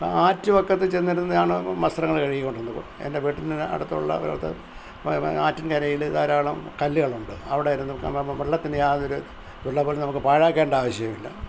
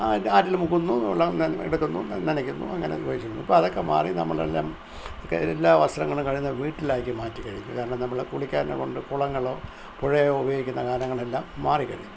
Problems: none marked